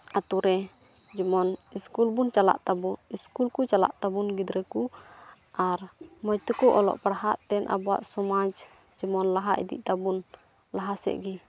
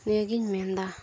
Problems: none marked